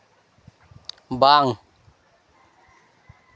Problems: constant background noise